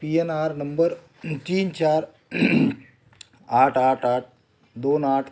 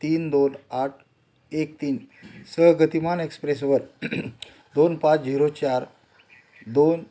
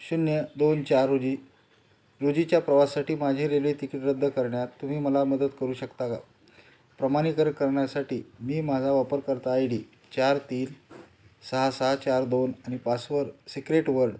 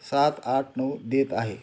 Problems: none marked